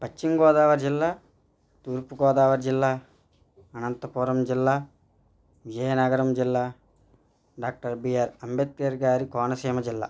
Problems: none marked